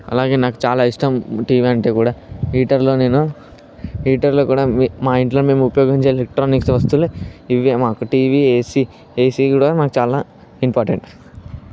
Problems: background sounds at intervals